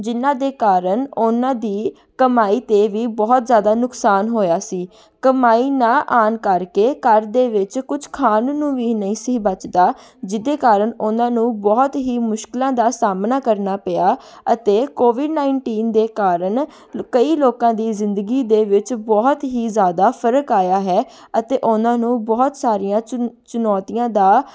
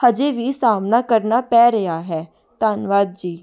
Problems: background conversations at intervals